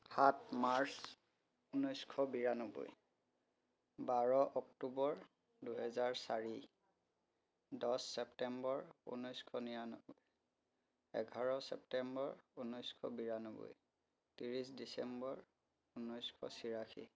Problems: background conversations at intervals